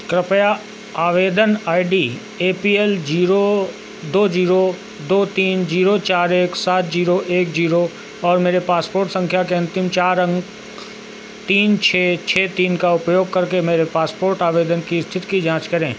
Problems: none marked